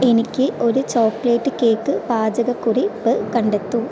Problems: constant background noise